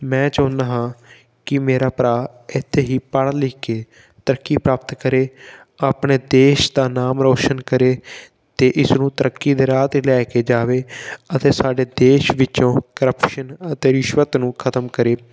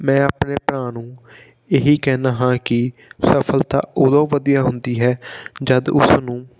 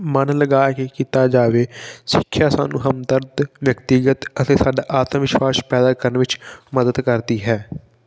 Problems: background sounds at intervals